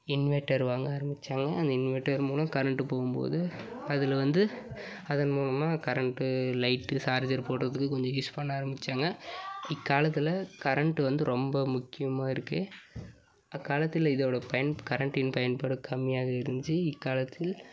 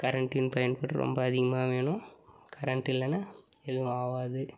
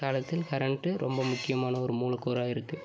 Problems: background sounds at intervals